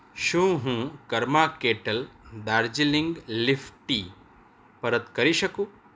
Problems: none marked